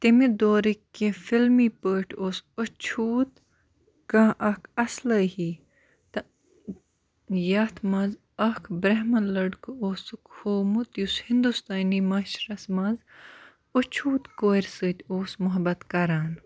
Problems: background sounds at intervals